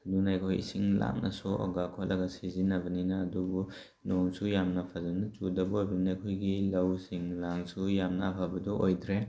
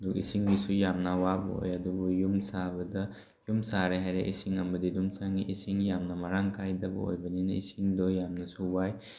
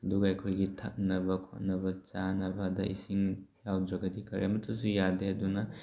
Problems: none marked